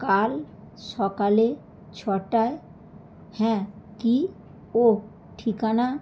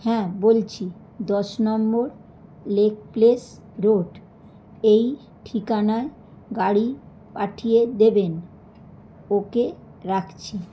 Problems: background sounds at intervals